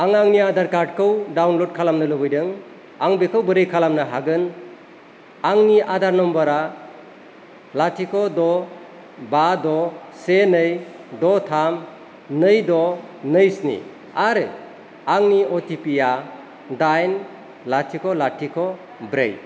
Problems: constant background noise